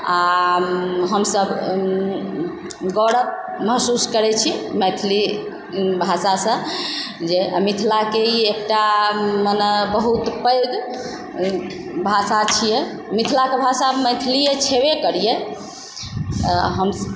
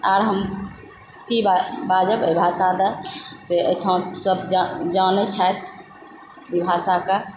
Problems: background sounds at intervals